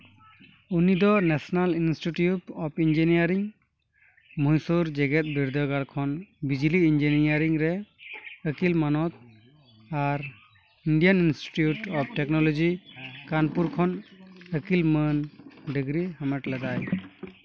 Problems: constant background noise, background conversations at intervals